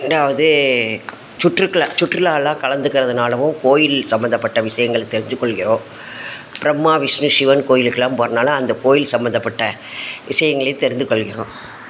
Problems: constant background noise